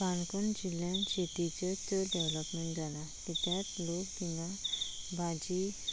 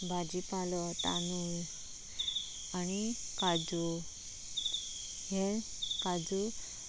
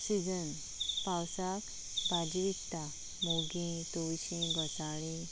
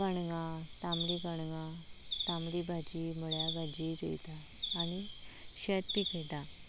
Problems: constant background noise